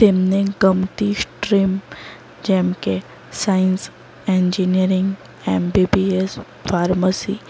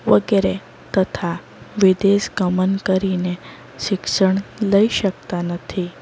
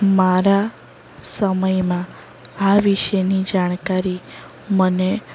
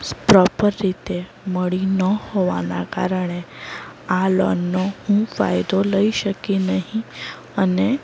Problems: none marked